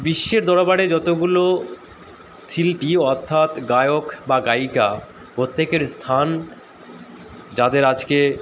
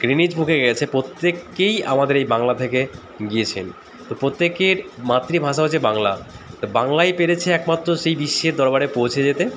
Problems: none marked